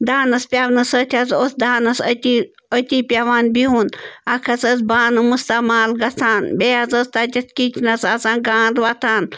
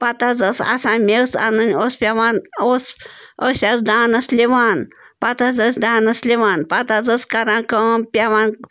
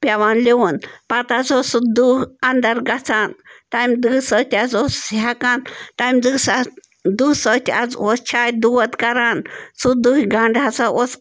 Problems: constant background noise